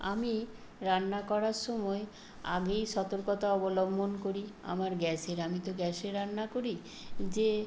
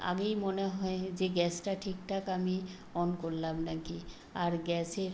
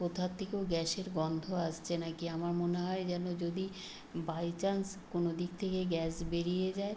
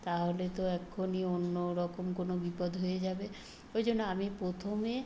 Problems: constant background noise